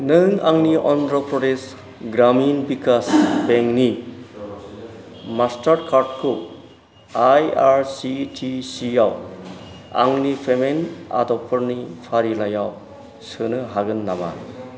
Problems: background sounds at intervals